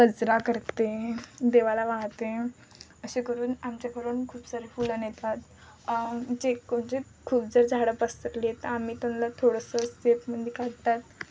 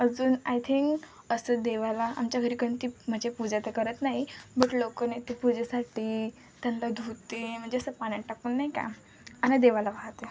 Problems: constant background noise, background conversations at intervals